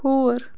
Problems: constant background noise